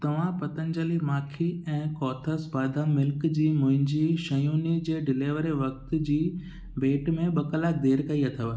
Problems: echo